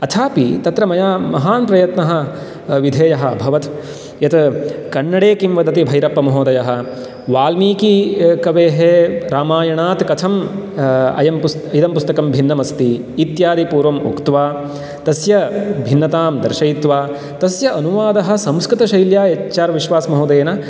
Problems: background sounds at intervals